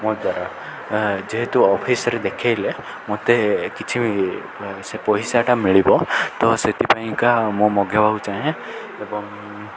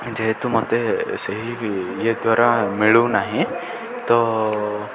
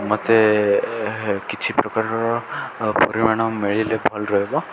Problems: none marked